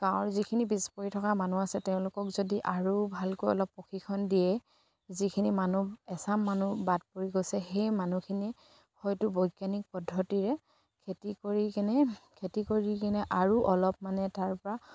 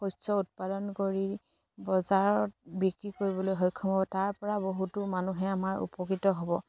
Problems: none marked